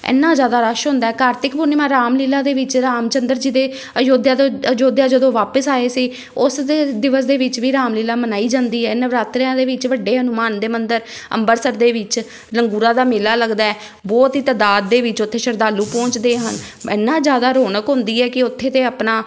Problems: background sounds at intervals